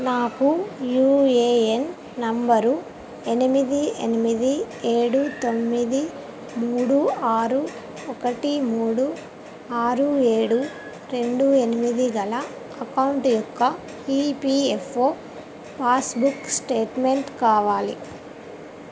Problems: constant background noise, background conversations at intervals